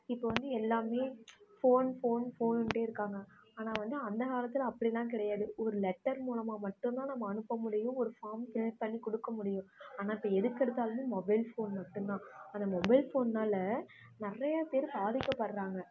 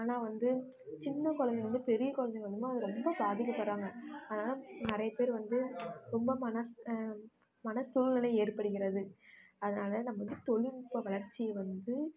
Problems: constant background noise